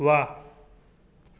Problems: constant background noise, echo